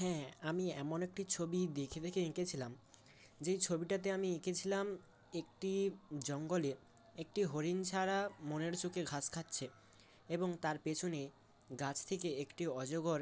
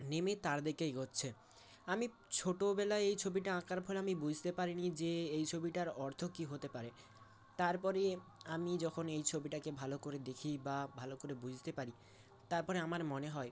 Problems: constant background noise, background conversations at intervals